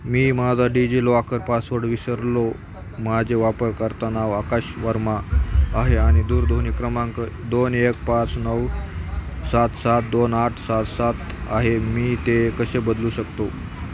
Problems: constant background noise, continuous background conversations